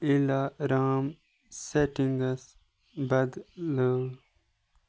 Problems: none marked